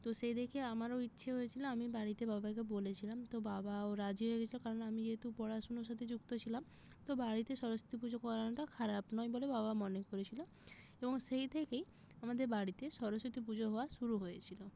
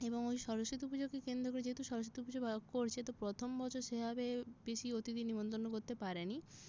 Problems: none marked